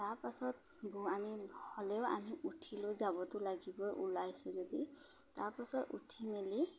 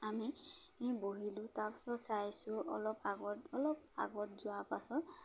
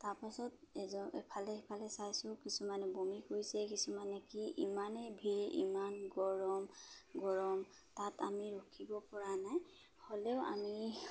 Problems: none marked